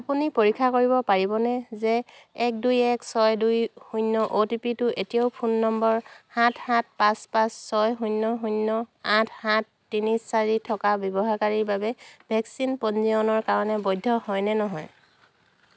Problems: none marked